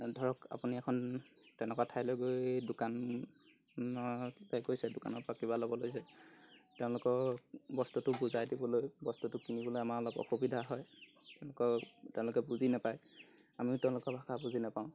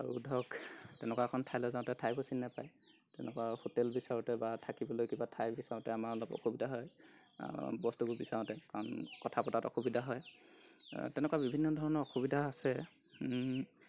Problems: constant background noise